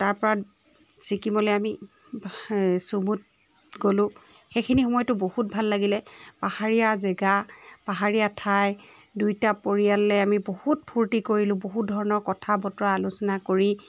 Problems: background sounds at intervals, background conversations at intervals